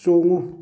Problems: none marked